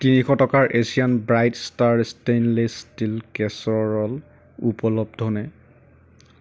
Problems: background sounds at intervals